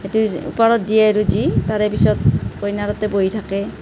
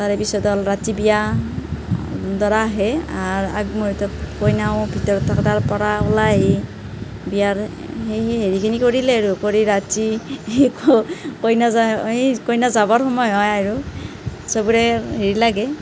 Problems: none marked